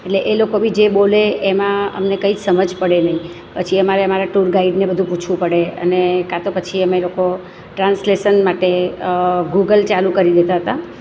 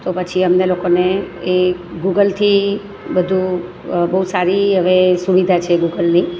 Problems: none marked